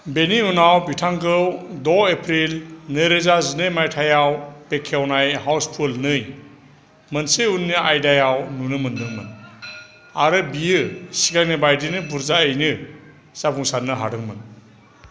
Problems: constant background noise